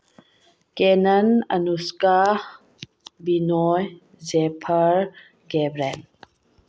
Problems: low volume